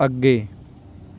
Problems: none marked